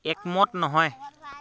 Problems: constant background noise